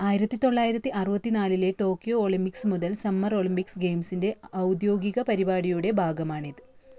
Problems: none marked